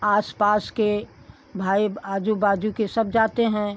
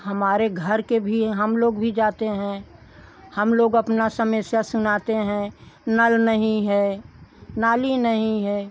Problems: none marked